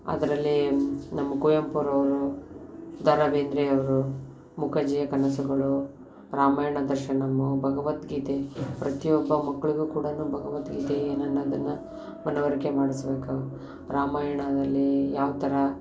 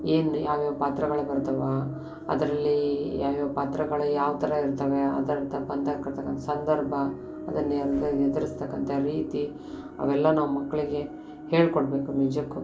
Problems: none marked